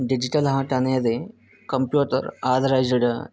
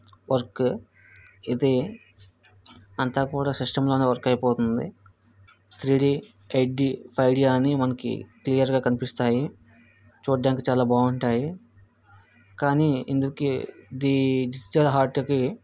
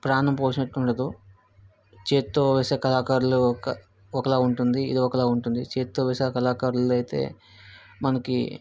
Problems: background sounds at intervals